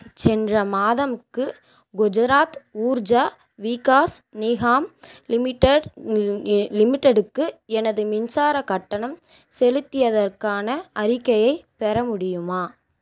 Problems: none marked